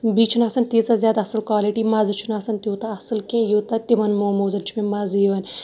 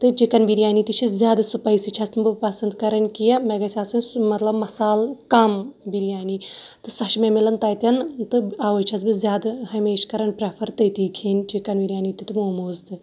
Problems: background sounds at intervals